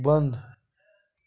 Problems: background sounds at intervals